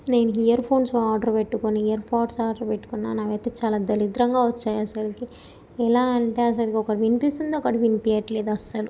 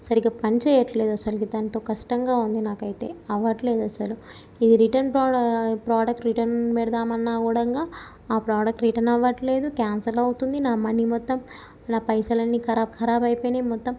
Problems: none marked